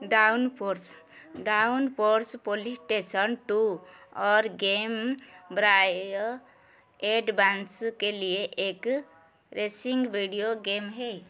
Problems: constant background noise